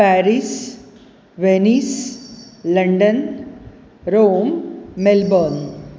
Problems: background sounds at intervals